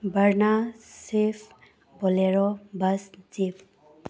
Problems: none marked